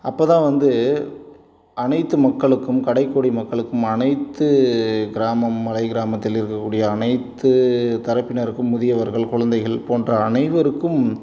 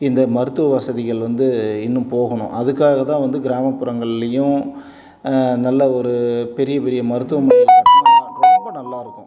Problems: none marked